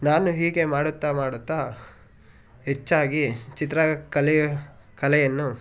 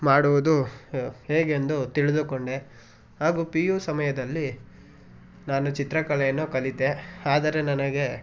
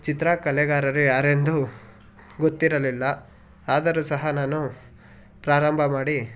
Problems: background conversations at intervals